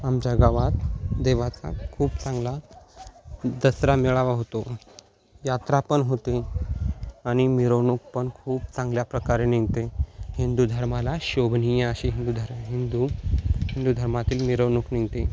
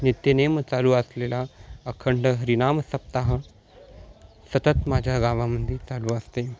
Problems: constant background noise, continuous background conversations